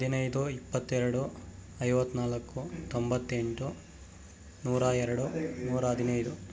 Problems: constant background noise